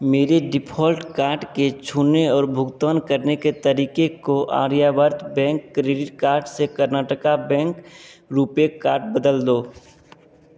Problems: constant background noise